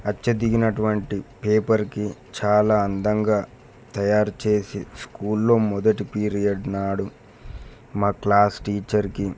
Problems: none marked